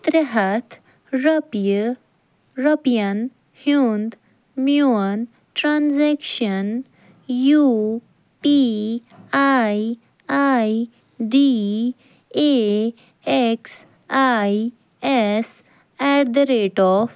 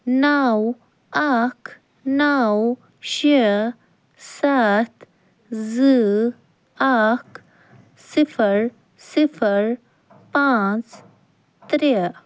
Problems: none marked